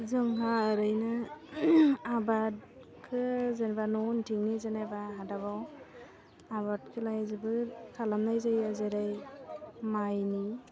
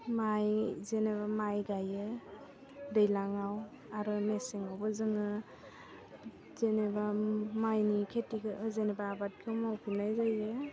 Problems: low volume